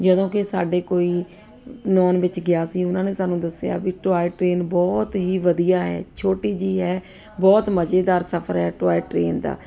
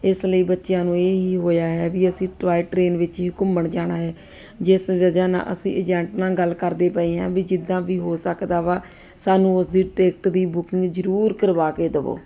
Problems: constant background noise